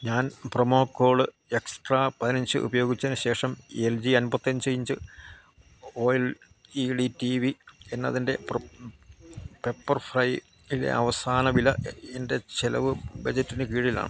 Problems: constant background noise